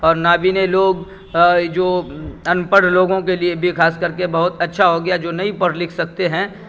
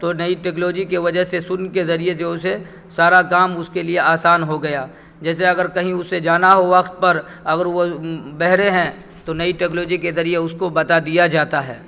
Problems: background sounds at intervals